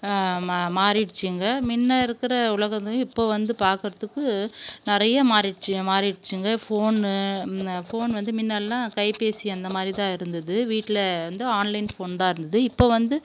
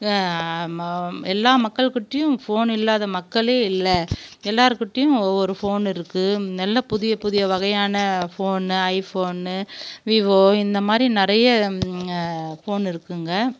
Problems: constant background noise